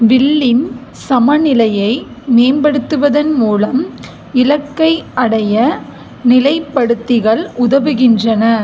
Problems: none marked